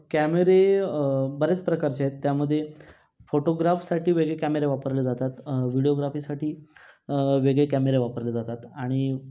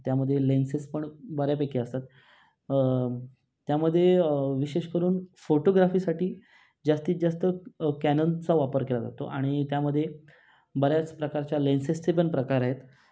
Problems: none marked